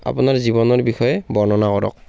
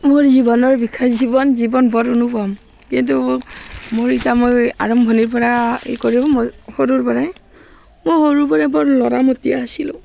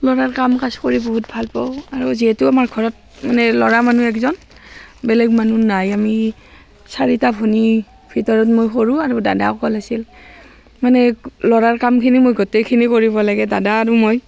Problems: background sounds at intervals, background conversations at intervals